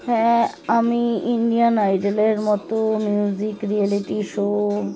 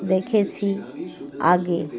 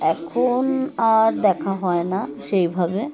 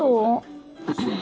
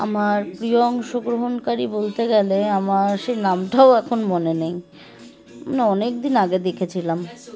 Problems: constant background noise, continuous background conversations